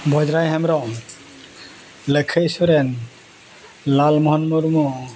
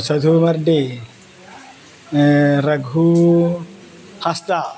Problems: constant background noise, background conversations at intervals